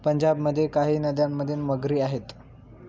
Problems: none marked